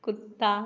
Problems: none marked